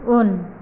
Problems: low volume